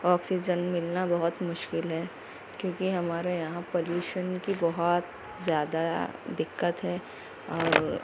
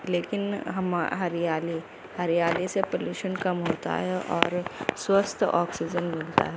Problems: constant background noise, low volume